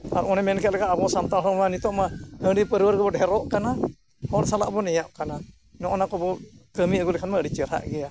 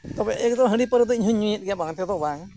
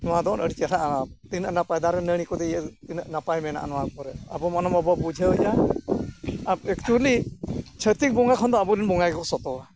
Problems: constant background noise